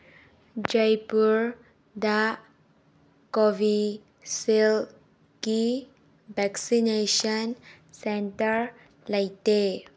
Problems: none marked